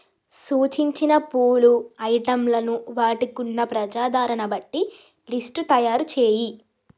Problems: none marked